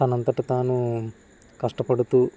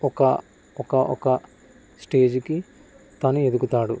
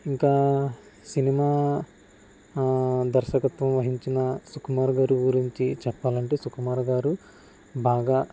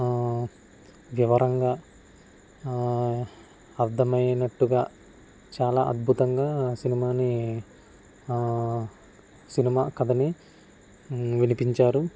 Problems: constant background noise